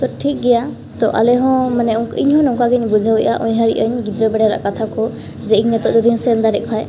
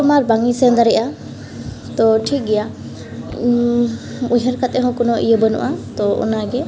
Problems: background sounds at intervals, echo